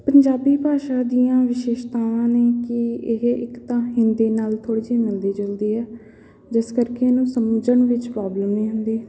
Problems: none marked